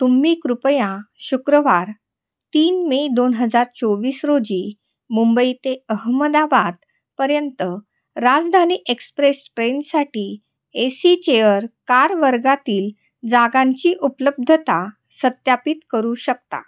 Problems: background sounds at intervals, echo